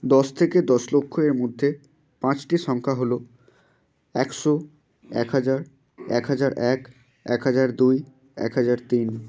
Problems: none marked